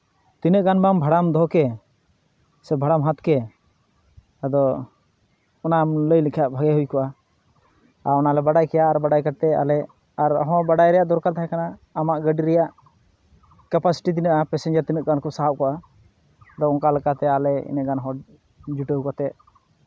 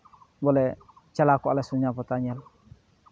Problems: none marked